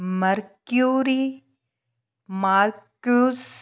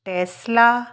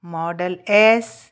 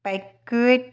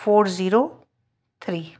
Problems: none marked